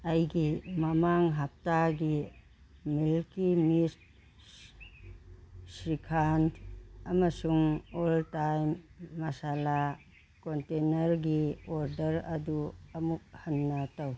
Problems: background sounds at intervals